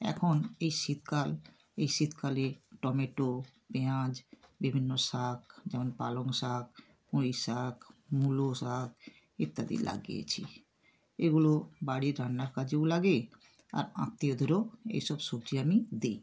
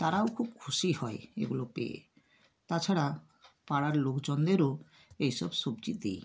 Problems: none marked